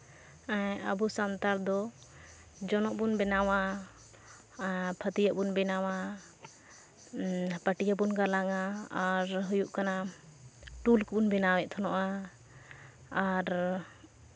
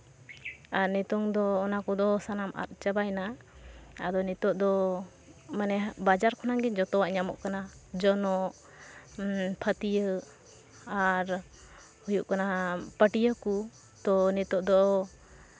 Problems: none marked